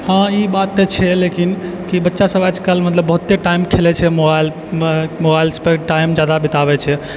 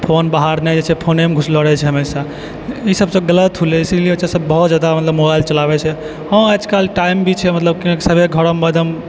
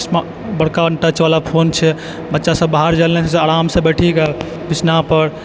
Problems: background sounds at intervals